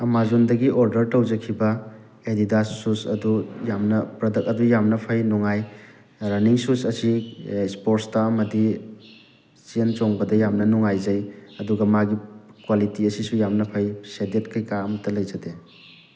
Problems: constant background noise